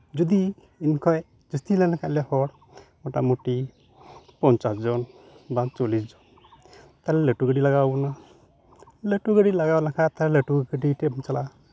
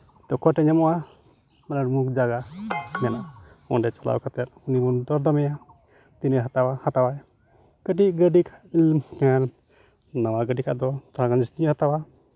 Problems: background sounds at intervals